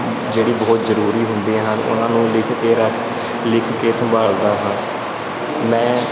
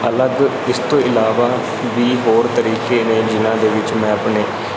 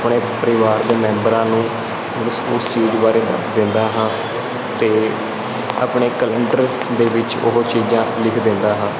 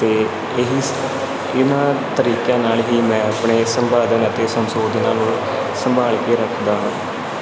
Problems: constant background noise